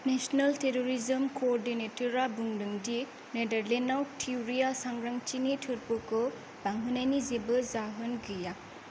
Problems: none marked